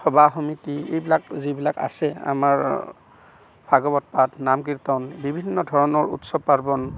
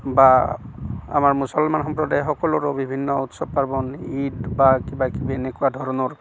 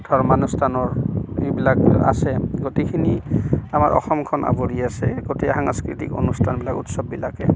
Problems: constant background noise